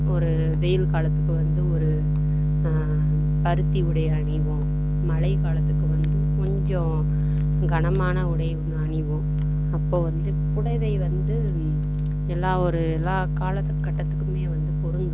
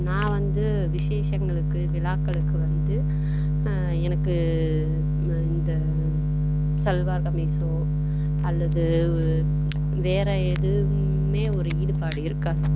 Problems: none marked